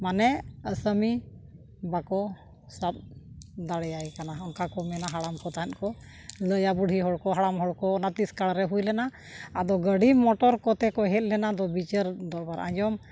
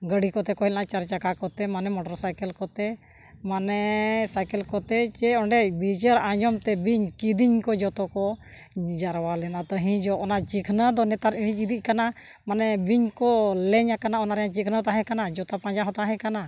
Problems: background sounds at intervals